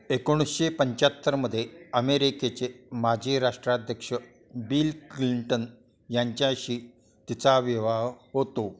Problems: constant background noise, continuous background conversations